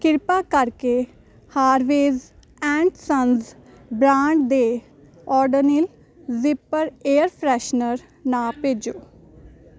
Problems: constant background noise